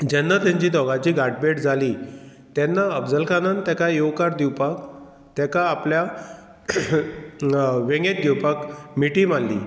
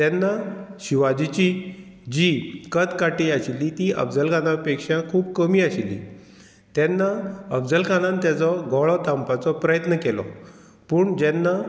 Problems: none marked